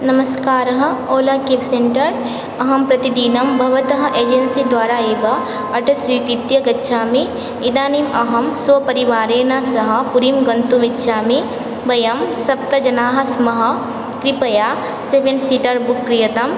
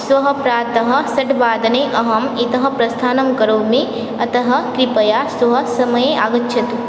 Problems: constant background noise